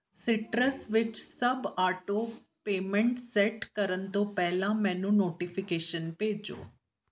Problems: background sounds at intervals